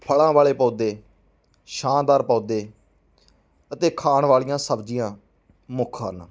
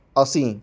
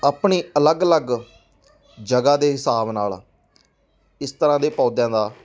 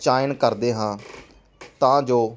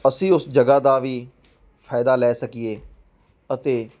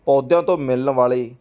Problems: background sounds at intervals, background conversations at intervals